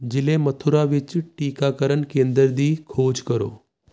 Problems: constant background noise